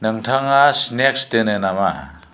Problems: constant background noise